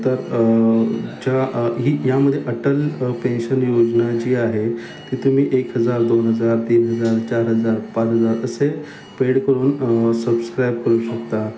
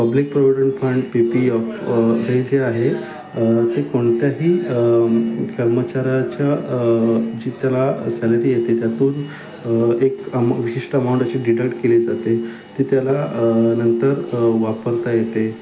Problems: none marked